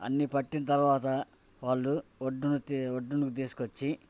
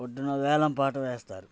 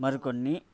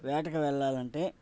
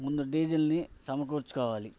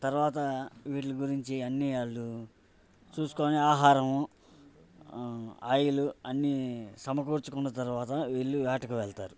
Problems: background sounds at intervals